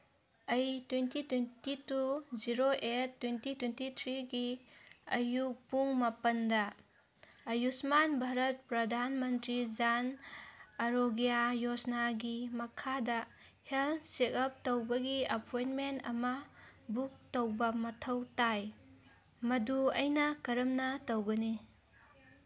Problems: none marked